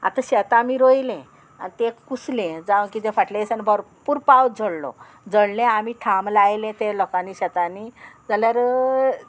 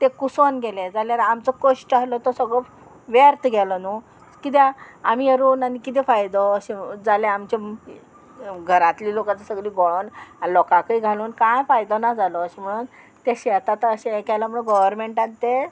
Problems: none marked